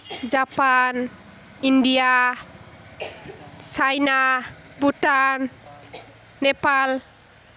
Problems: background sounds at intervals